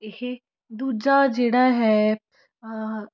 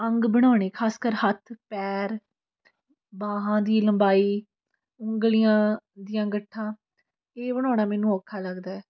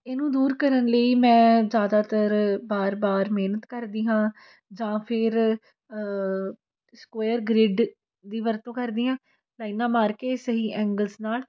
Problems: continuous background conversations